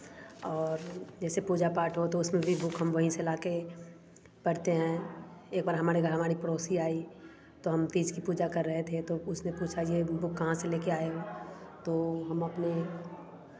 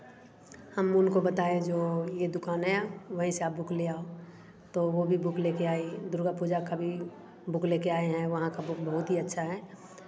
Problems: constant background noise